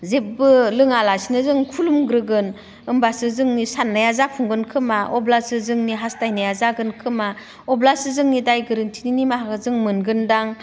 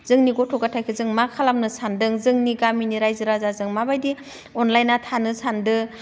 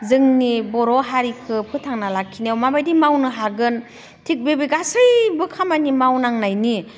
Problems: none marked